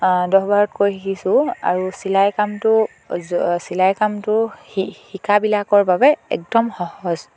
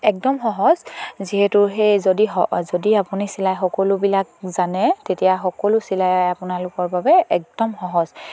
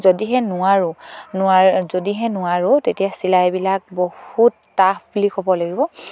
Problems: none marked